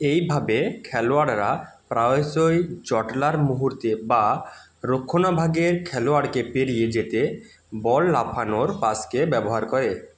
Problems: background sounds at intervals